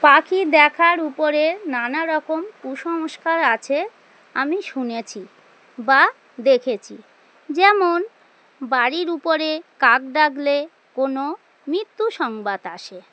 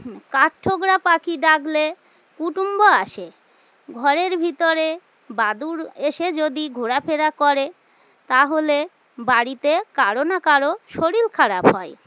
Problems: constant background noise